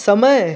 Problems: none marked